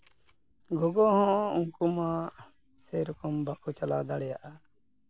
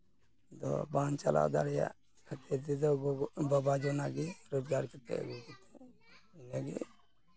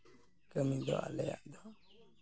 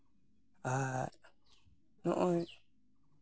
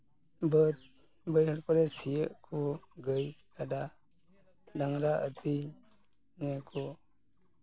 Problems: none marked